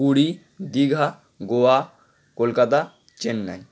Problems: constant background noise